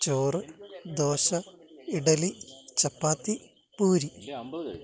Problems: none marked